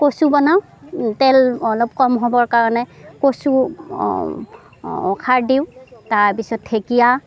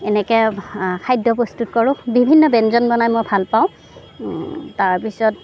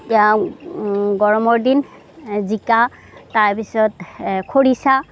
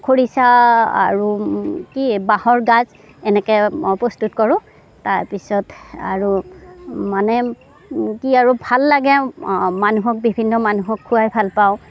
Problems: none marked